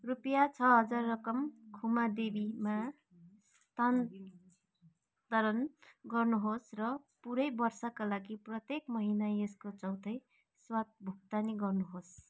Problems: none marked